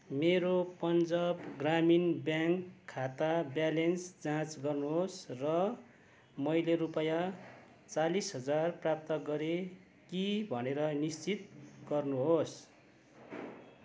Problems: none marked